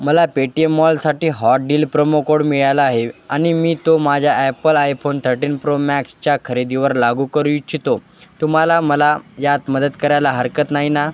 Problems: none marked